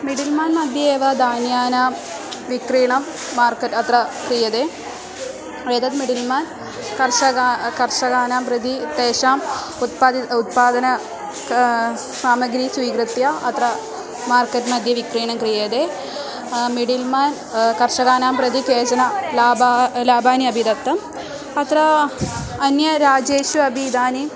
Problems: continuous background conversations